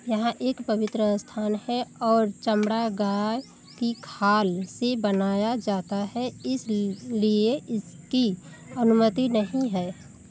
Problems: constant background noise